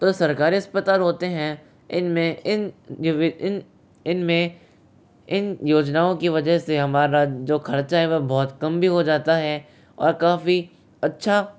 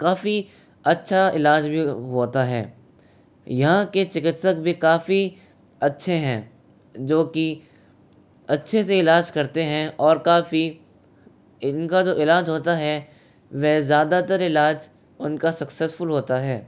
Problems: constant background noise